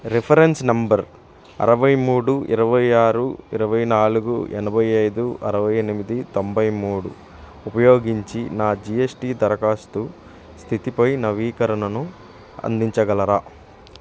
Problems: none marked